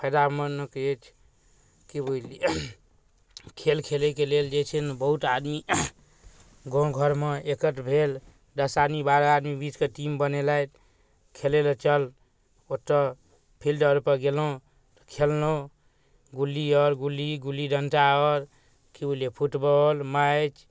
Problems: none marked